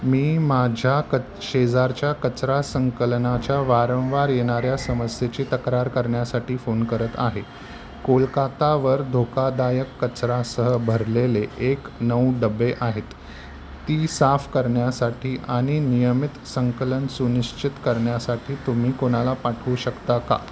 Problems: none marked